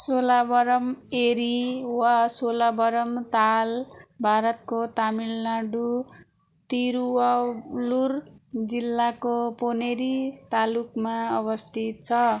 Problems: background conversations at intervals